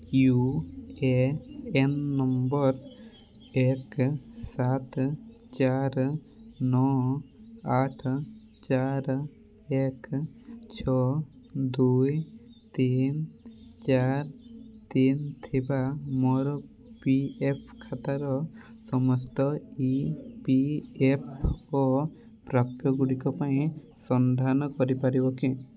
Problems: constant background noise, continuous background conversations